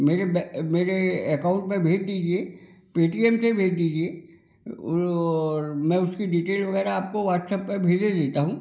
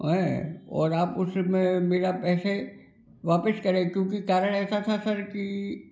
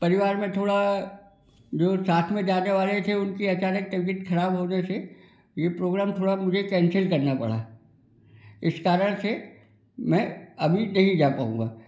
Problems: constant background noise